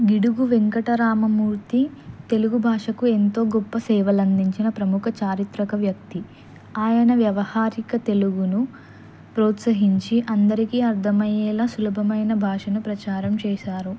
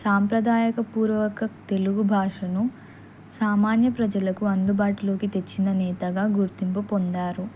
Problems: constant background noise